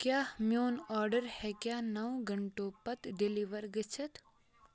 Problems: continuous background conversations